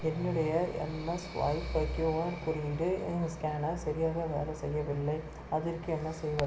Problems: constant background noise